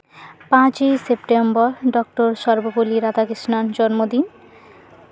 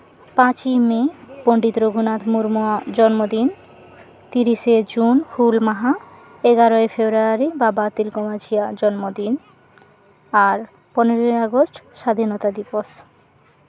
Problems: constant background noise